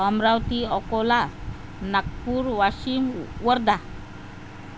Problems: constant background noise